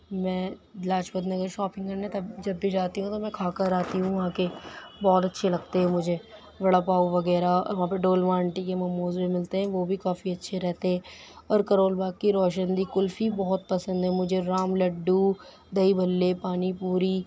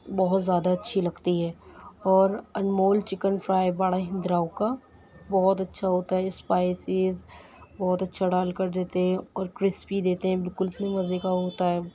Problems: background sounds at intervals